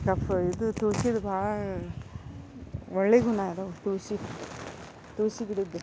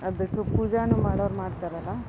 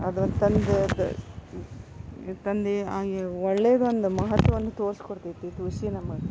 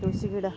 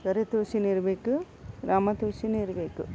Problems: background sounds at intervals